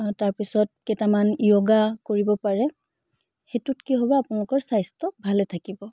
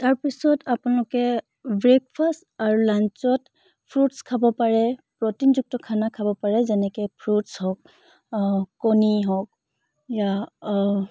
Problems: background sounds at intervals